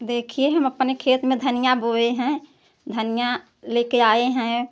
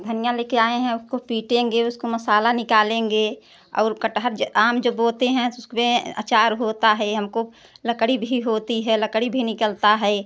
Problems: none marked